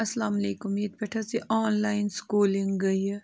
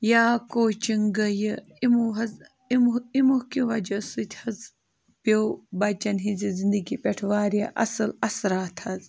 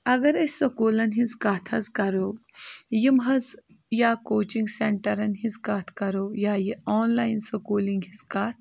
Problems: constant background noise